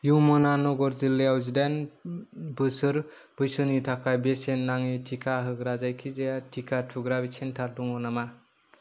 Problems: none marked